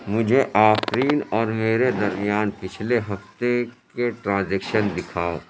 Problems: constant background noise